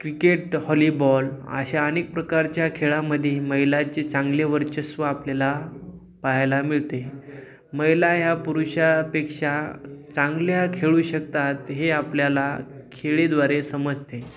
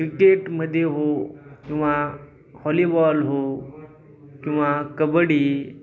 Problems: background sounds at intervals